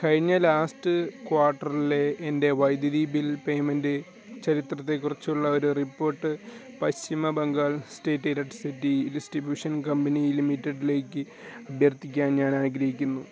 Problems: constant background noise